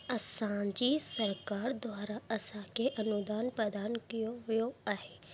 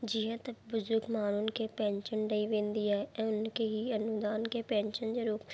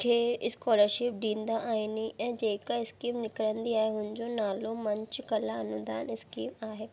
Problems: constant background noise